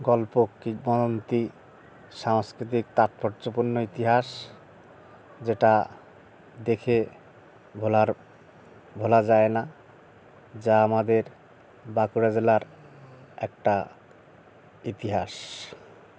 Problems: none marked